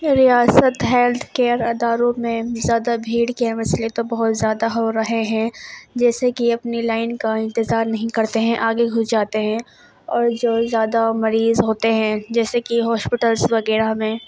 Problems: constant background noise